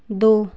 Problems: constant background noise